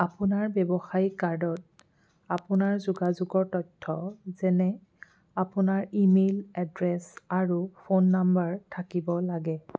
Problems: background sounds at intervals